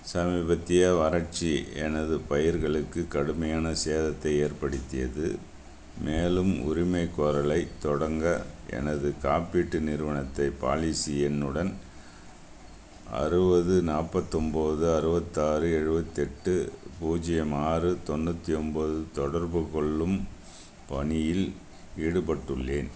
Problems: constant background noise